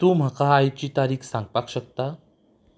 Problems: background sounds at intervals